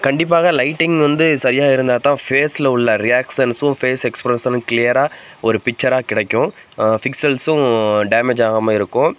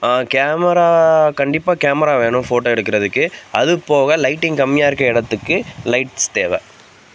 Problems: constant background noise